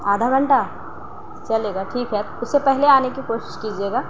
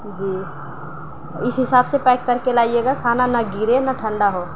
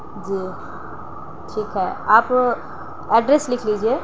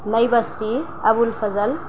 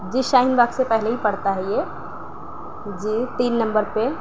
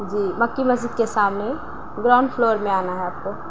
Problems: none marked